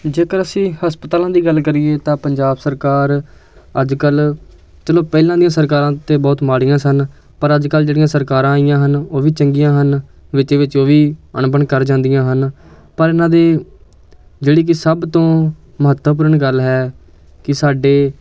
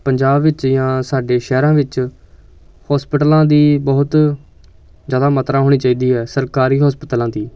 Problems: constant background noise, background conversations at intervals